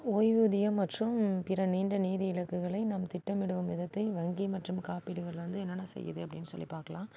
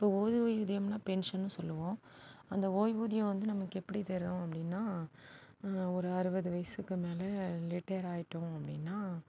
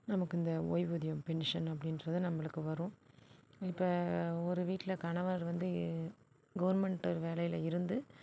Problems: background sounds at intervals